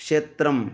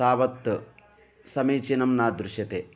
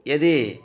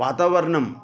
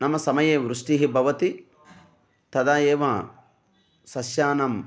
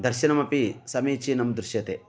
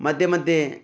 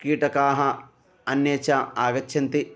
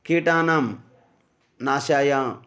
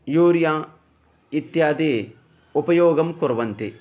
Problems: background sounds at intervals